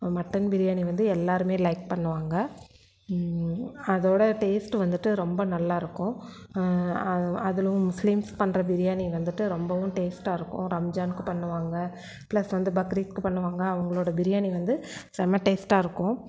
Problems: none marked